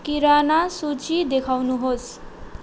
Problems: none marked